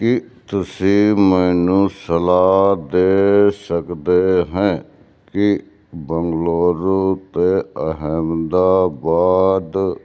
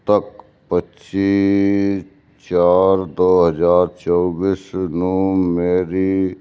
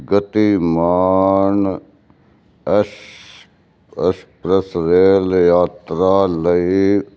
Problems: constant background noise